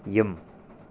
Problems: low volume